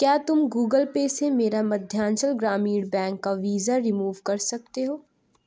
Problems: none marked